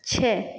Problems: constant background noise